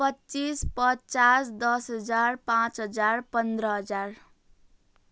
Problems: none marked